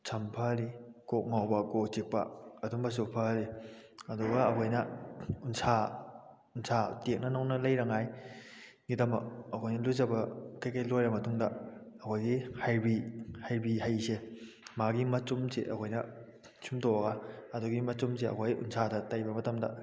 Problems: none marked